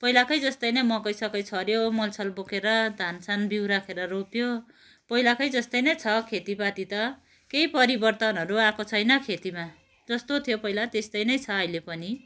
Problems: none marked